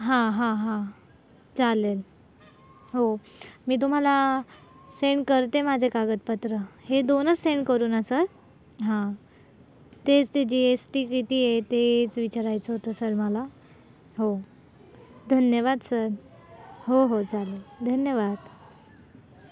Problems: none marked